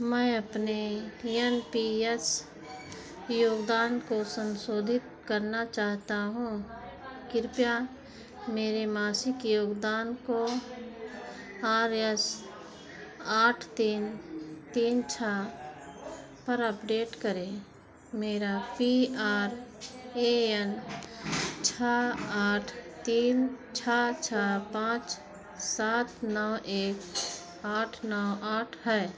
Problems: background sounds at intervals